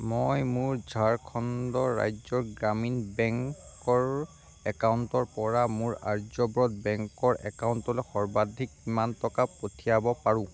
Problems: constant background noise, low volume